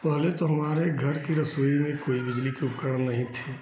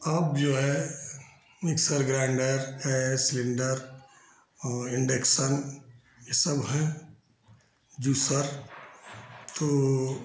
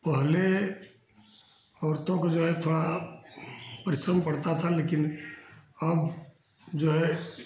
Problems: constant background noise, echo